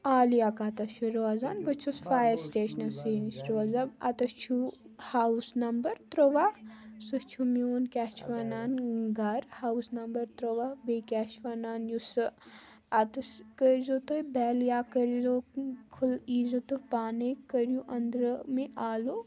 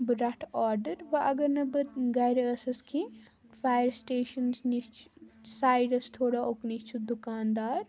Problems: background sounds at intervals